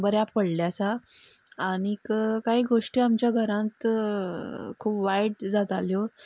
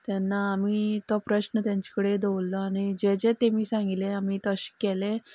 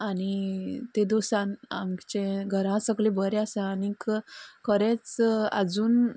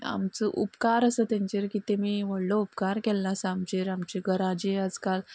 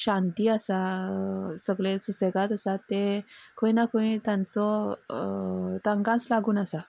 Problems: background sounds at intervals, background conversations at intervals